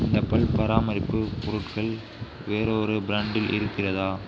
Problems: constant background noise, background conversations at intervals